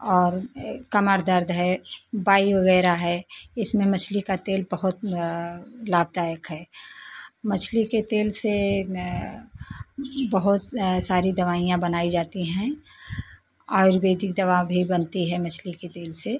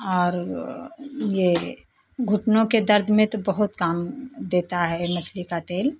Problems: none marked